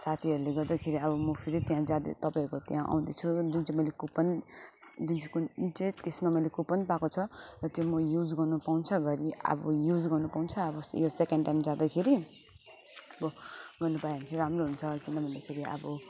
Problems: background sounds at intervals